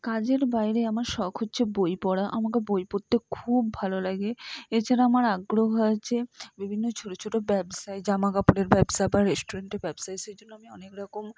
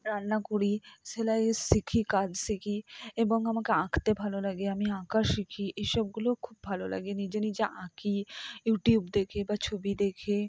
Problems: none marked